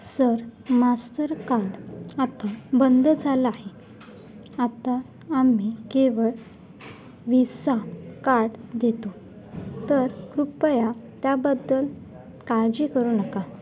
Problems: none marked